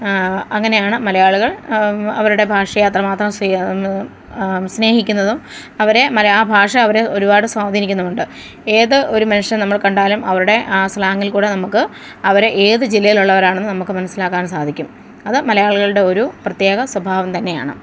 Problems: none marked